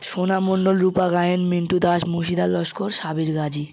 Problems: constant background noise